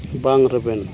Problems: constant background noise